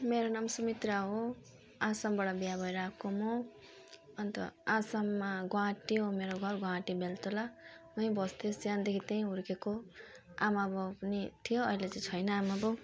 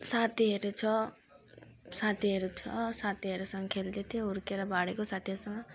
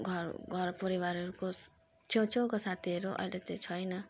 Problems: none marked